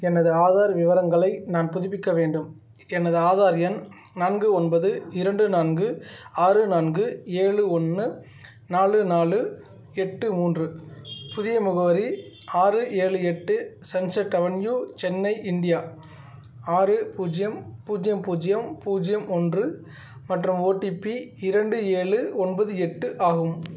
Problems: background sounds at intervals